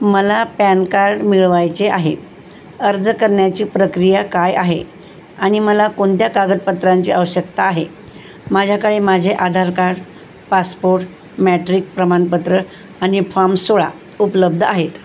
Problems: none marked